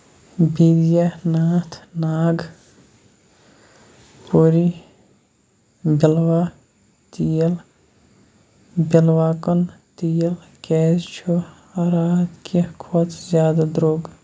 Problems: constant background noise